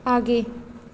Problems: constant background noise